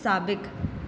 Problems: constant background noise, echo